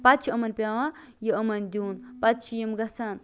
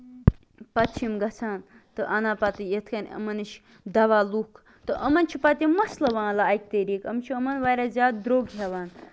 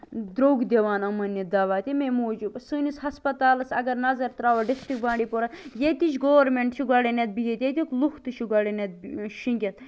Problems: constant background noise